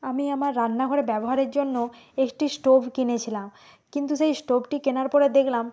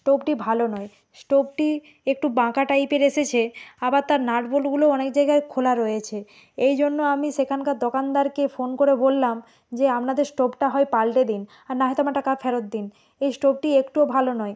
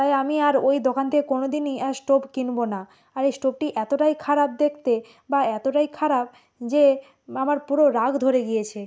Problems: none marked